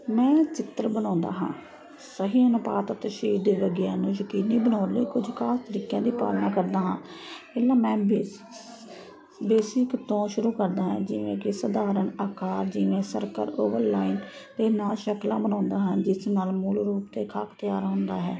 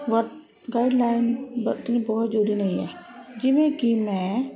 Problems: constant background noise